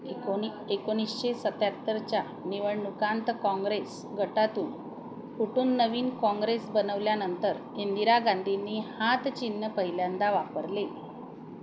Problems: constant background noise